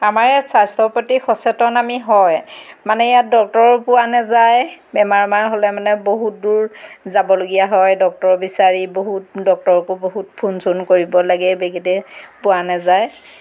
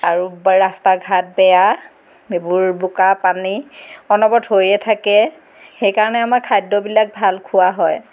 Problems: background sounds at intervals